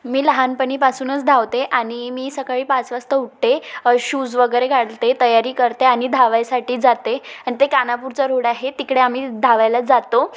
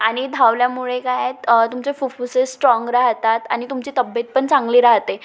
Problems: background sounds at intervals